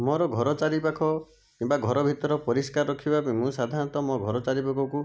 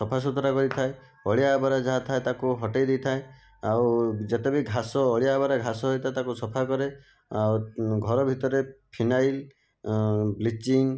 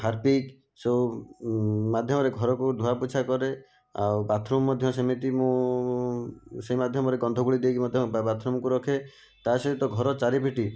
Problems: none marked